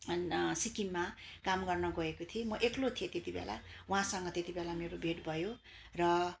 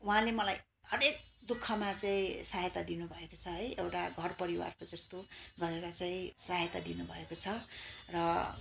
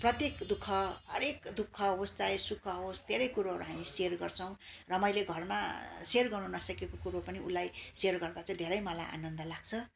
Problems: constant background noise